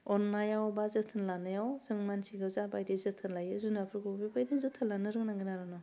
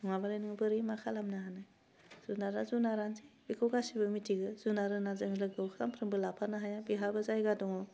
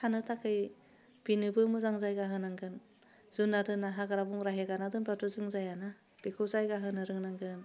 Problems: low volume